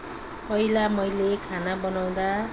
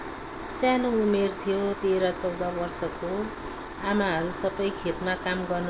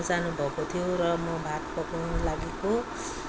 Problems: background sounds at intervals